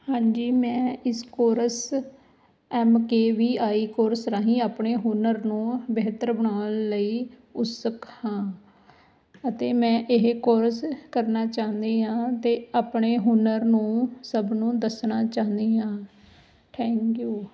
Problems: background sounds at intervals